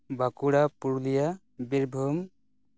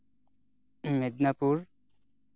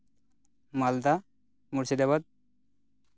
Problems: none marked